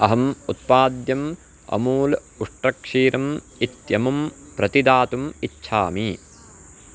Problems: constant background noise